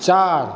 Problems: constant background noise, echo